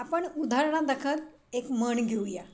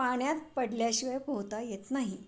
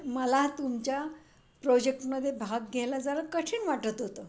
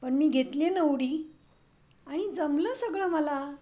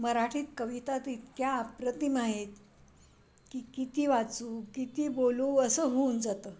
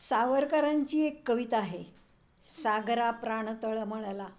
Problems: none marked